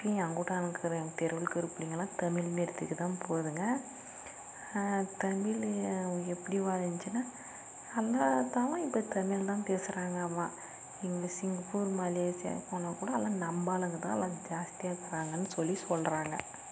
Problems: constant background noise, low volume